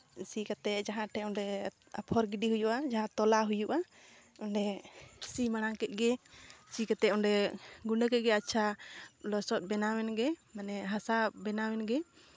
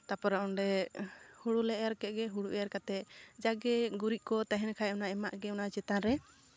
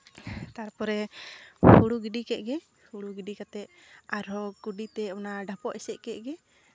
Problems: none marked